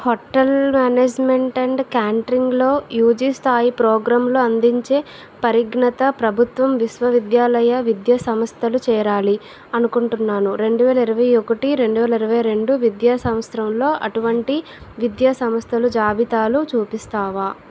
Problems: none marked